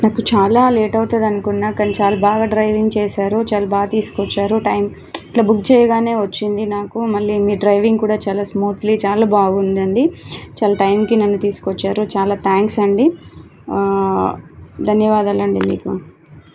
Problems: constant background noise